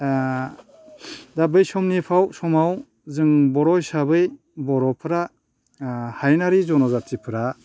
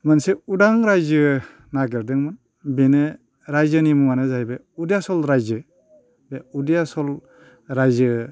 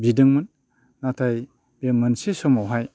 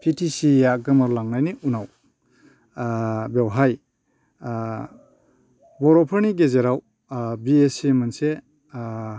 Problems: none marked